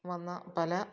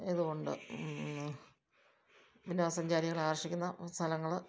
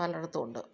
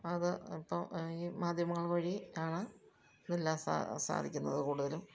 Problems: low volume